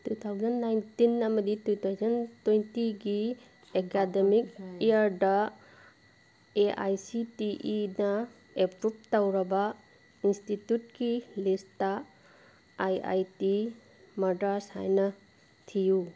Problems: constant background noise